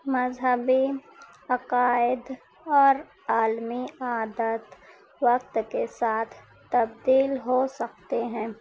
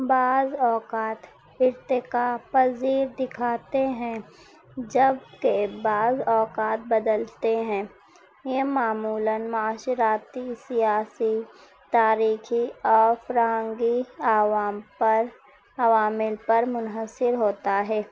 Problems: none marked